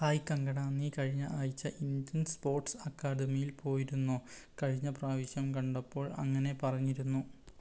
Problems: low volume